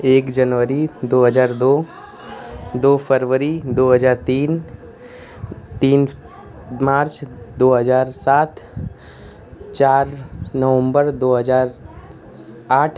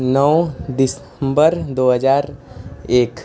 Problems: none marked